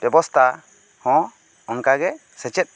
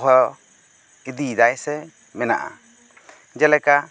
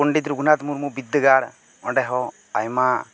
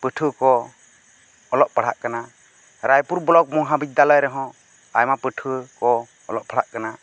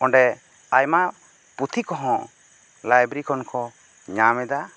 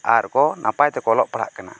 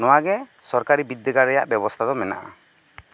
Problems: constant background noise